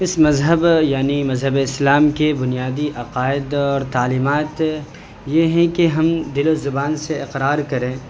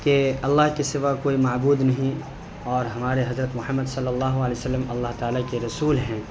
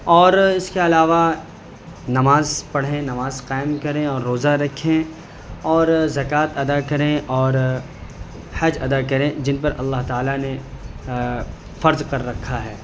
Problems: none marked